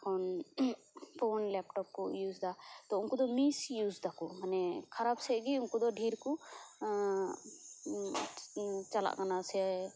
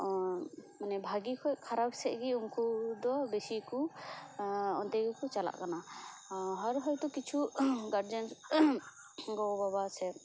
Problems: constant background noise